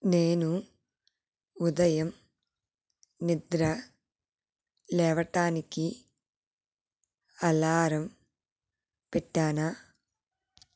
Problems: none marked